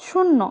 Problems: none marked